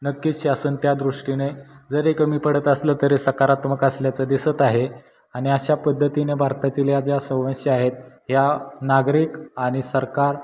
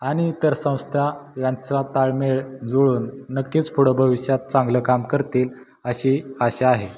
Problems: background sounds at intervals